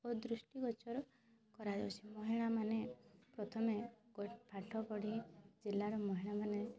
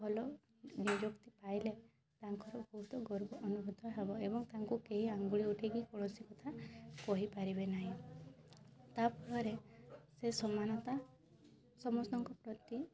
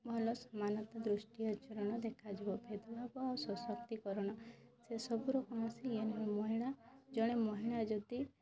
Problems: constant background noise, continuous background conversations